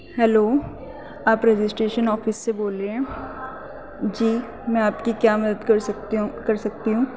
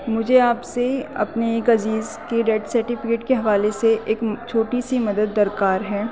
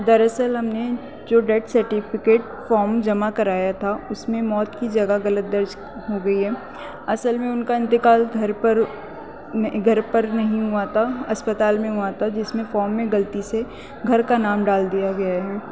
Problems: constant background noise